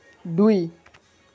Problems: none marked